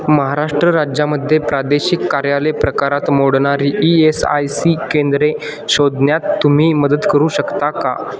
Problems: background sounds at intervals